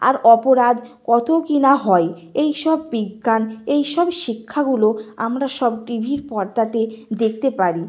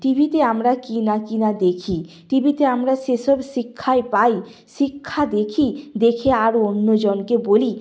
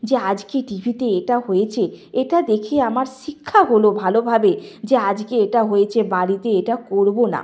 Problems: background sounds at intervals